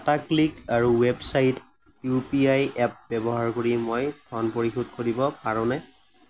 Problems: background sounds at intervals